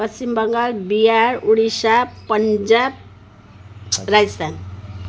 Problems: none marked